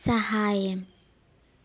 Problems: background sounds at intervals, low volume